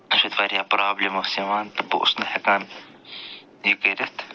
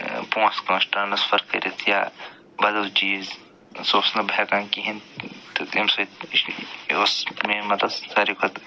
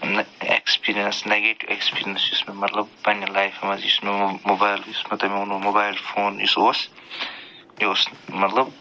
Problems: constant background noise